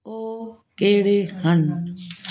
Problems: constant background noise